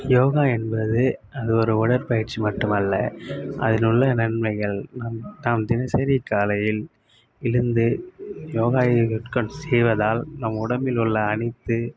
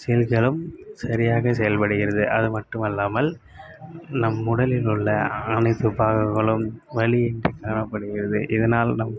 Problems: constant background noise